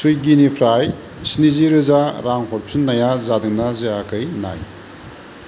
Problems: constant background noise